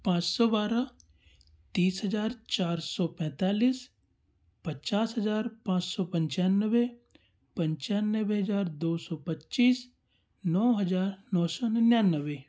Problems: none marked